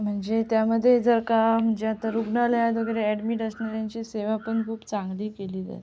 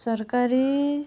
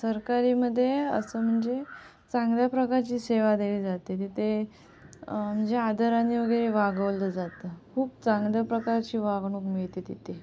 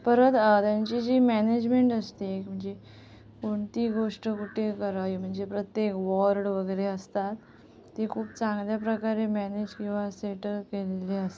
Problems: constant background noise